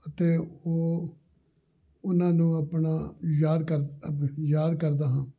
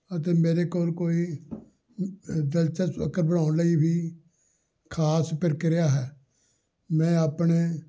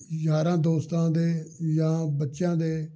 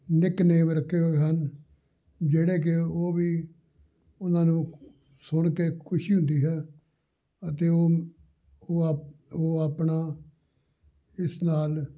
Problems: background conversations at intervals